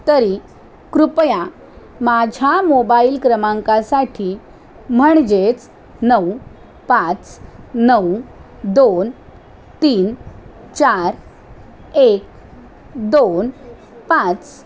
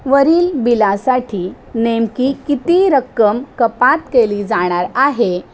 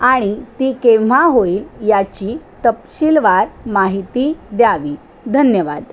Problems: constant background noise